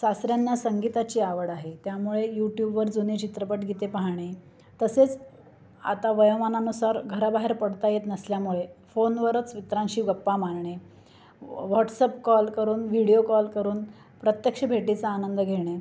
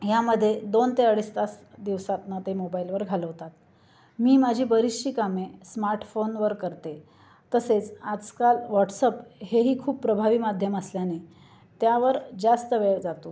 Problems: constant background noise, continuous background conversations